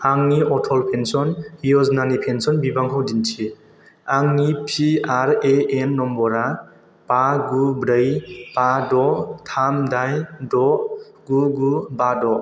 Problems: constant background noise